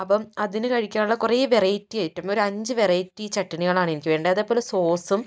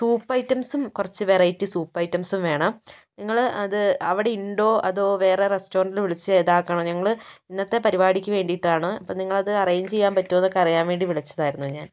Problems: none marked